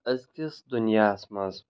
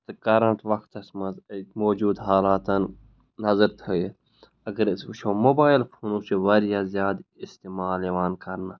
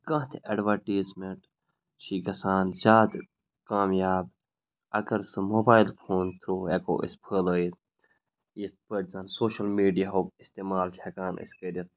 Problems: background sounds at intervals